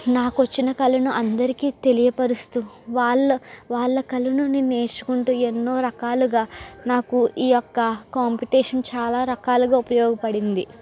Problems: constant background noise